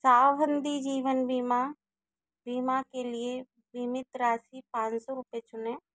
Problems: constant background noise